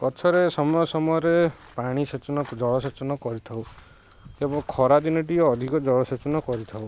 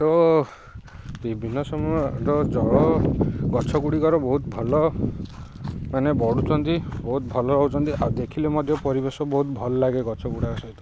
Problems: constant background noise